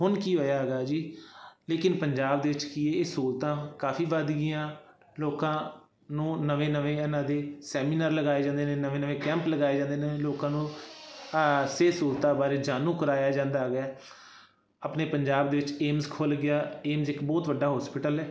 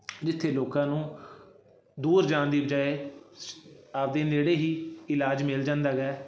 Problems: constant background noise